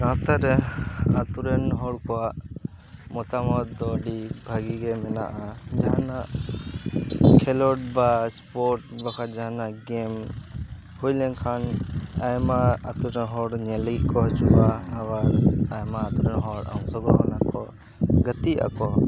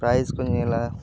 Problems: constant background noise, background conversations at intervals